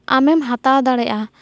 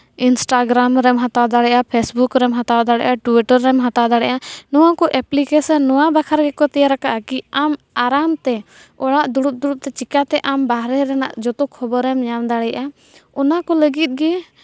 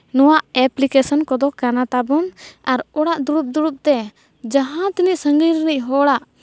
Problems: none marked